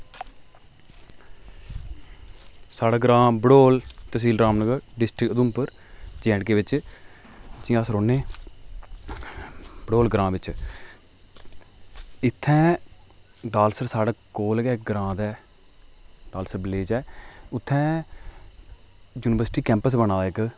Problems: echo